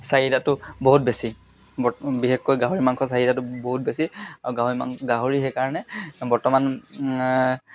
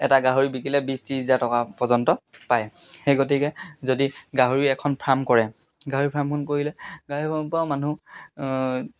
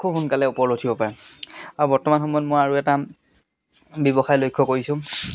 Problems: constant background noise